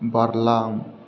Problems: constant background noise